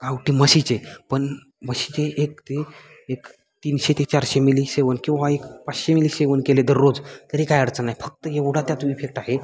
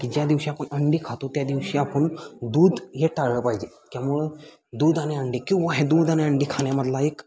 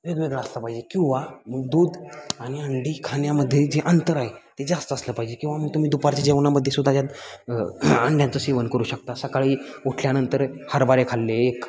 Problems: constant background noise, background conversations at intervals